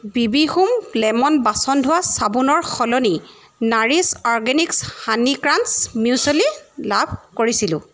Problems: background sounds at intervals